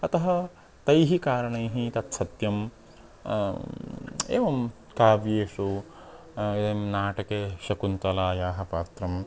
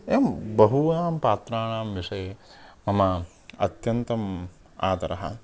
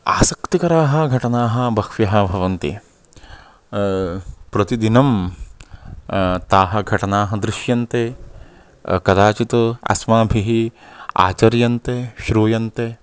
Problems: constant background noise